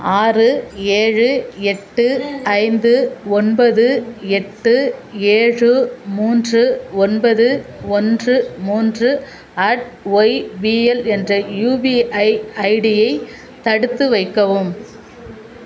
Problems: constant background noise, continuous background conversations